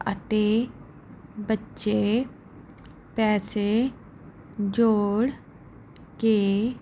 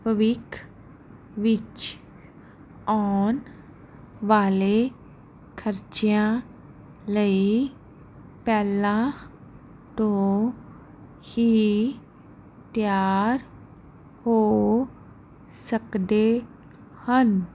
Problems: none marked